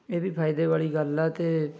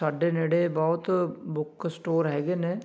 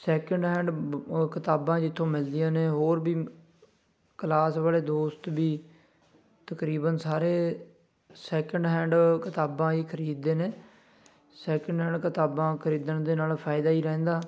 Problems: constant background noise, background conversations at intervals